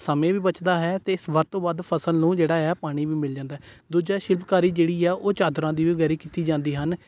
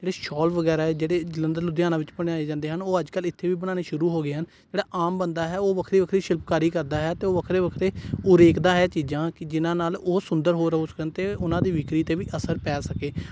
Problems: none marked